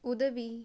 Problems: none marked